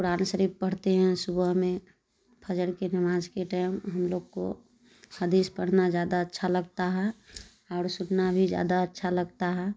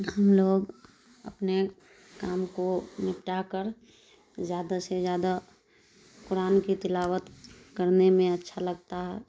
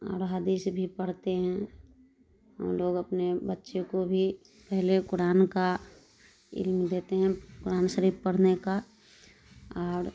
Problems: none marked